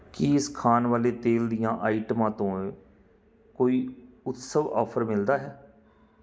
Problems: none marked